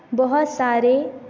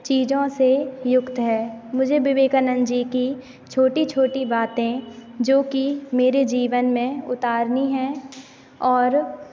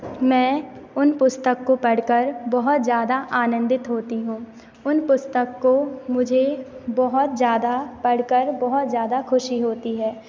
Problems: constant background noise